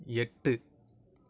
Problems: none marked